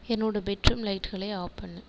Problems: echo